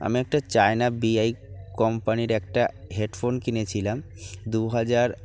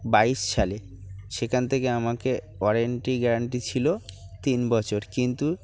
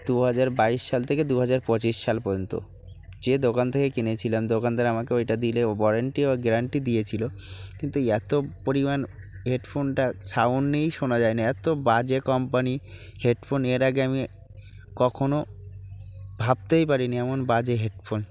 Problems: none marked